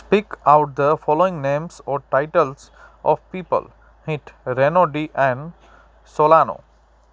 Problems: constant background noise, echo